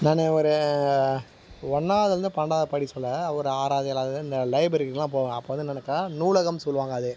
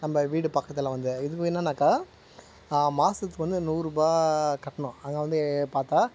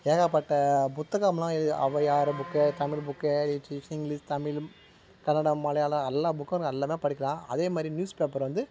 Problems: constant background noise